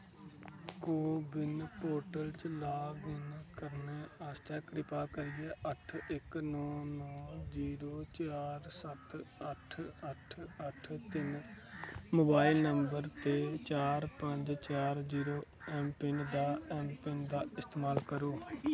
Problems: constant background noise, low volume